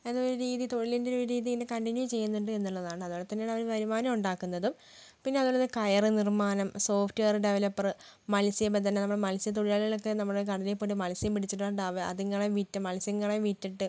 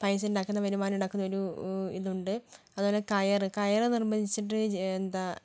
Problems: low volume